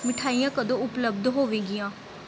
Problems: constant background noise